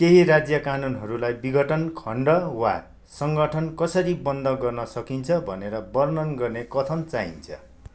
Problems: none marked